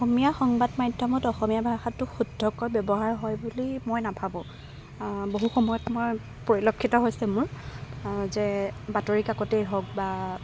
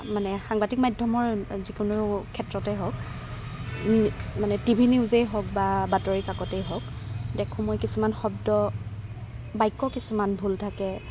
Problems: background sounds at intervals